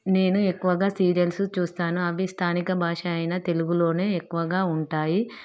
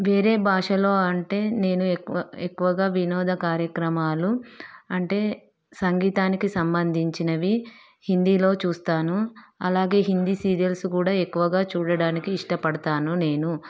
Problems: background sounds at intervals, background conversations at intervals